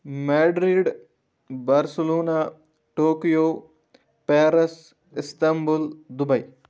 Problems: constant background noise